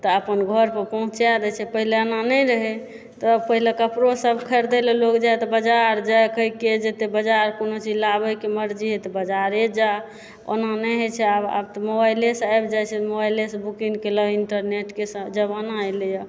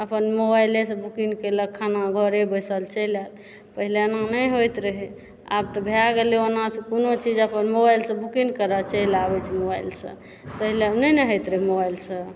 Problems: background sounds at intervals